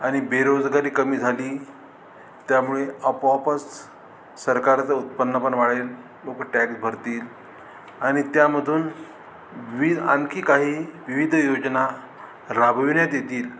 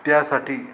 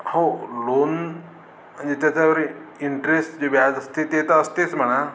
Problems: none marked